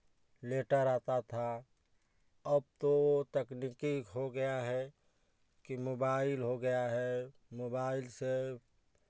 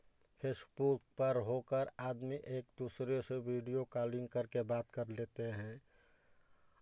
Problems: background sounds at intervals, background conversations at intervals